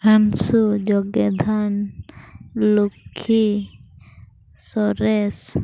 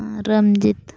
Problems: background sounds at intervals, low volume